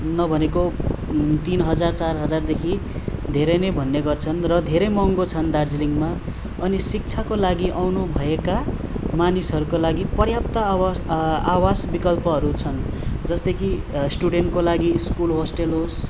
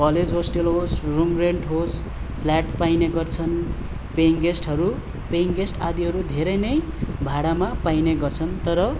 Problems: background sounds at intervals